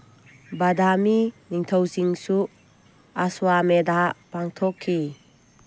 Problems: none marked